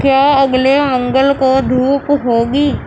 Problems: constant background noise